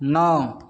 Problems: none marked